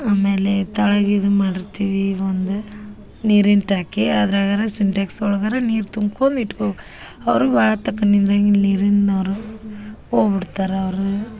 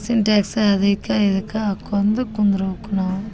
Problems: background sounds at intervals